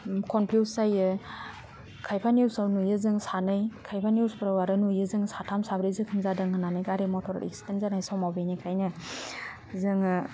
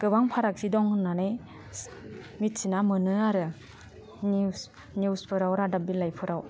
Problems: low volume